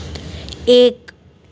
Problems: constant background noise